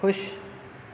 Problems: none marked